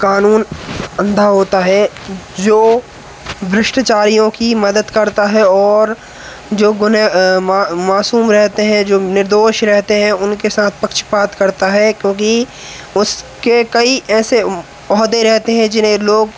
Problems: constant background noise